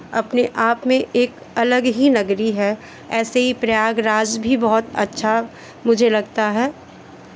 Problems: constant background noise, background conversations at intervals